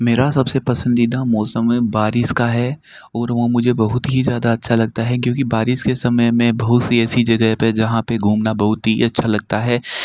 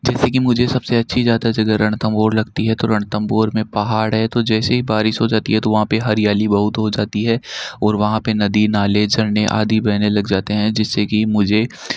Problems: none marked